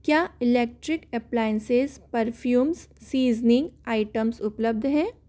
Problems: none marked